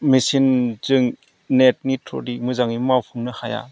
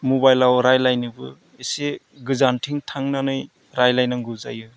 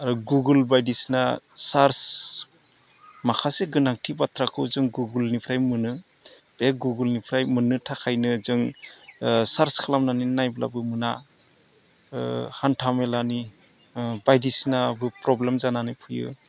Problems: none marked